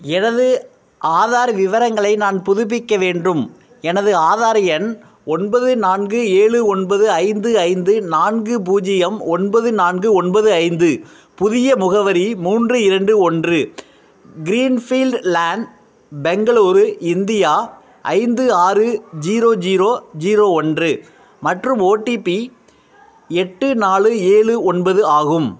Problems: none marked